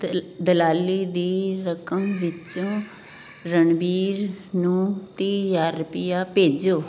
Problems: none marked